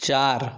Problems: none marked